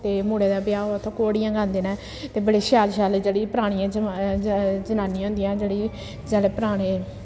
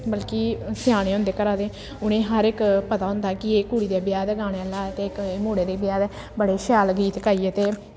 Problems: constant background noise, echo